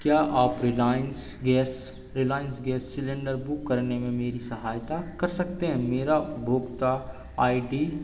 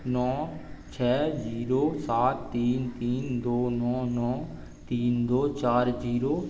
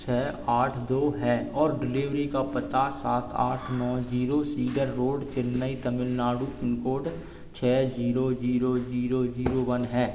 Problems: none marked